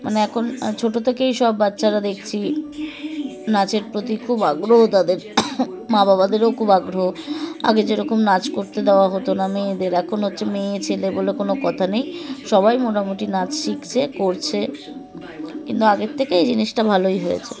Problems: constant background noise